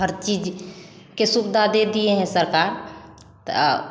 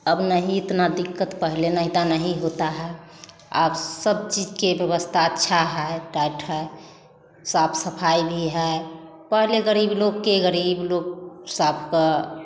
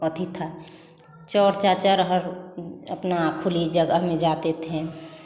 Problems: background conversations at intervals, echo